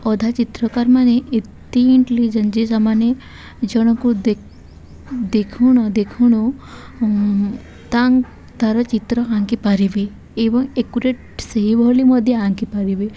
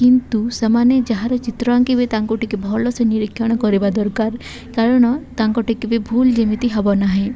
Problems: none marked